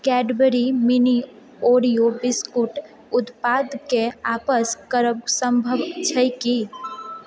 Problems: background conversations at intervals